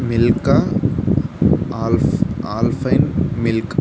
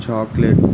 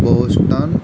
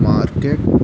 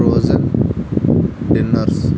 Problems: constant background noise